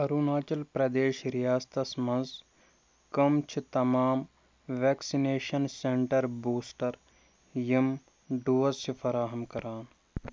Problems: background sounds at intervals